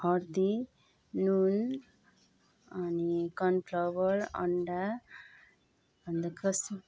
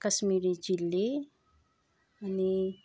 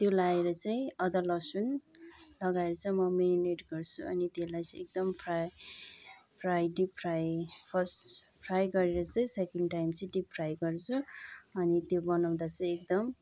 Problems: background sounds at intervals